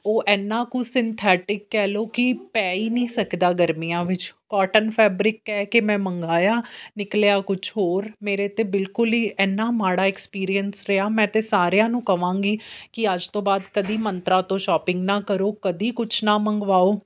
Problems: background sounds at intervals